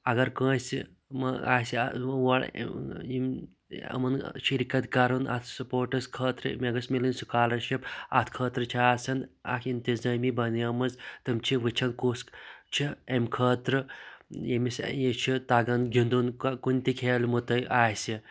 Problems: none marked